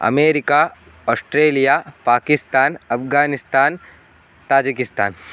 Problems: constant background noise